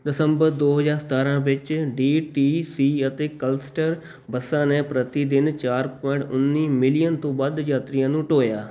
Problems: background sounds at intervals